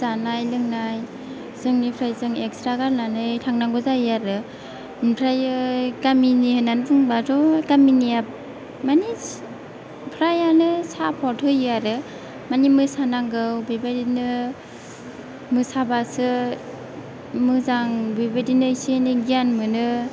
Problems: background sounds at intervals